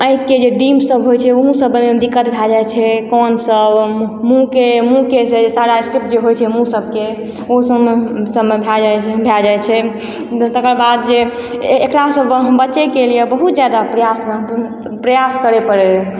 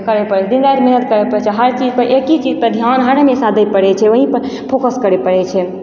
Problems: constant background noise, background conversations at intervals